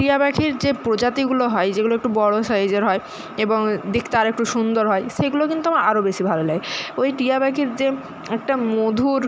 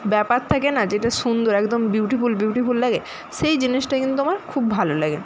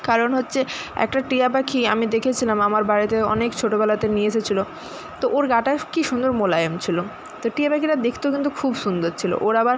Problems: constant background noise